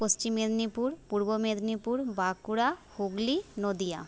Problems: constant background noise